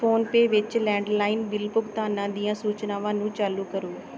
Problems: background sounds at intervals